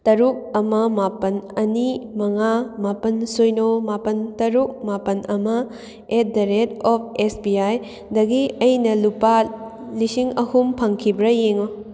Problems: none marked